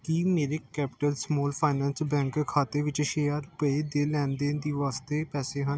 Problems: background sounds at intervals